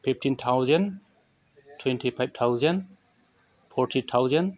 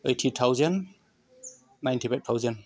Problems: constant background noise